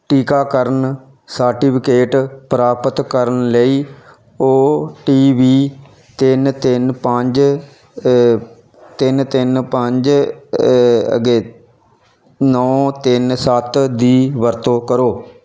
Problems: background sounds at intervals